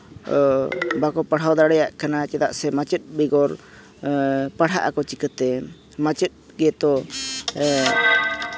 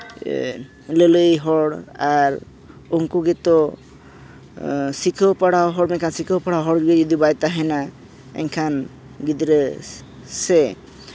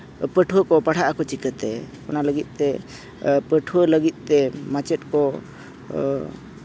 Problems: background sounds at intervals